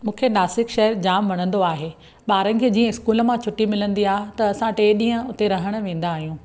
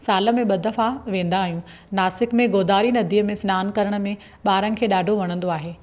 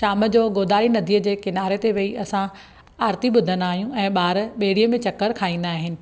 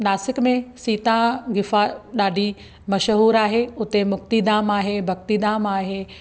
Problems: background sounds at intervals